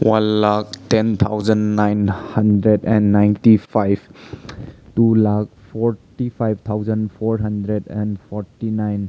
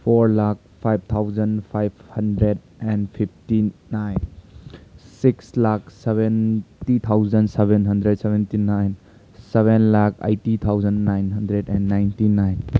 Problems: none marked